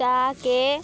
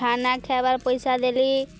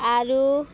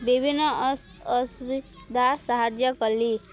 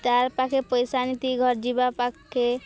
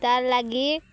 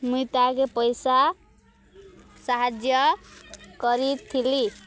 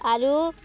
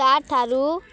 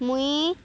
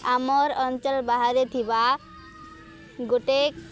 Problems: background sounds at intervals, background conversations at intervals